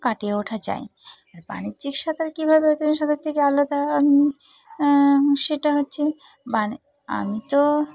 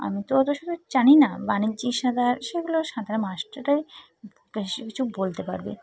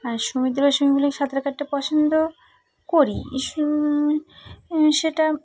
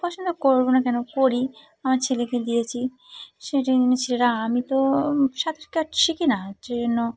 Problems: constant background noise, background conversations at intervals